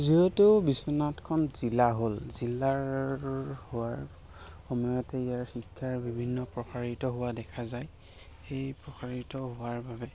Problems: constant background noise, background conversations at intervals